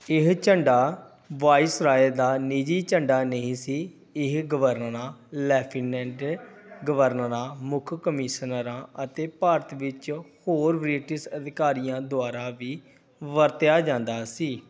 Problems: background sounds at intervals